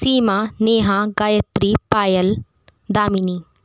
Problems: constant background noise